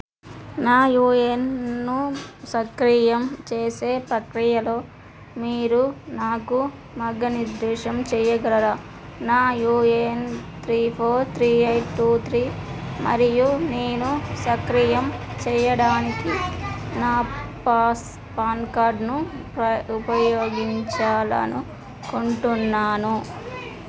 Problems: constant background noise, background conversations at intervals